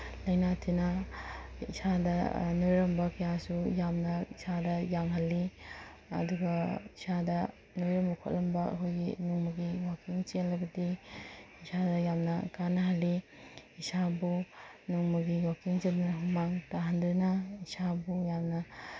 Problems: background sounds at intervals